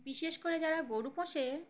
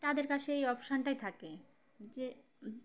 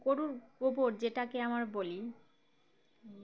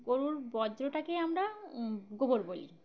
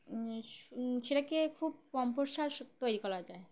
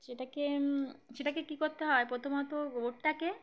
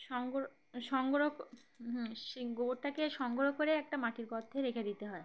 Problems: background sounds at intervals, background conversations at intervals